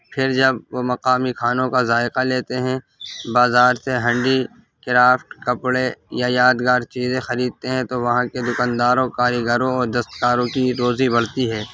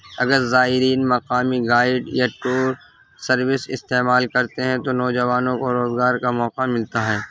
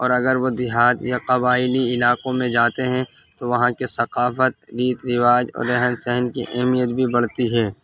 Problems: constant background noise